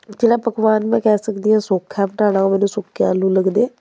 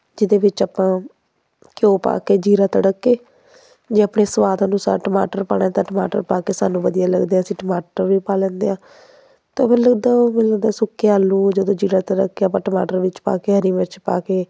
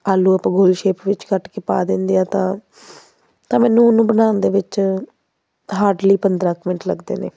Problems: background sounds at intervals